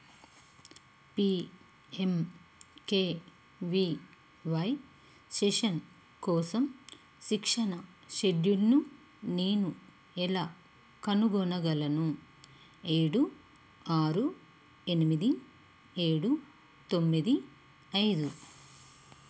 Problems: none marked